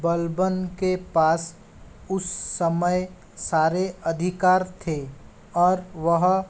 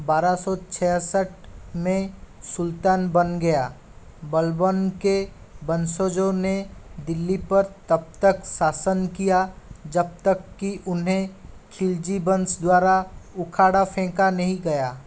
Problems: constant background noise